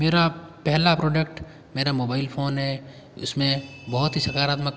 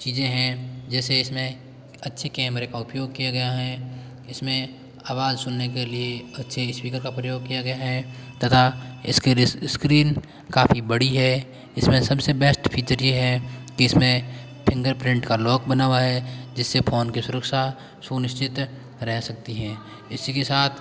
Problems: background sounds at intervals, background conversations at intervals